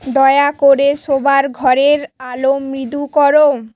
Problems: constant background noise